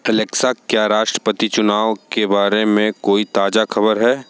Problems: none marked